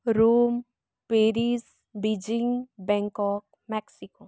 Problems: none marked